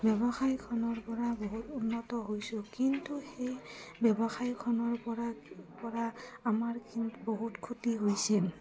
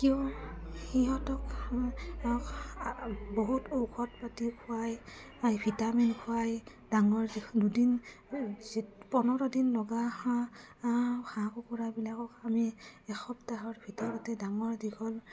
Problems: low volume